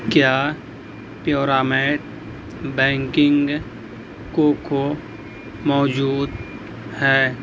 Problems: constant background noise